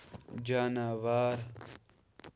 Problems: background sounds at intervals